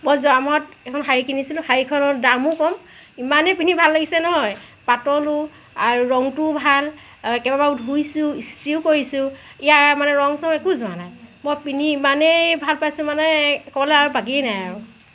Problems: none marked